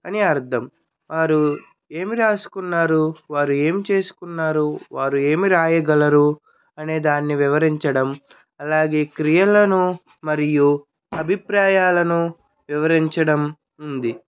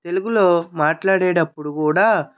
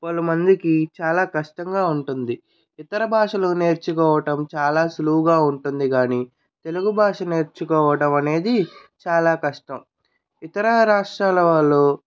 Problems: none marked